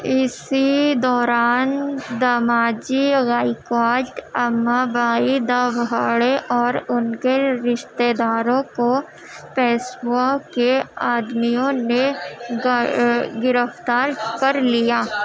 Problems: constant background noise, background conversations at intervals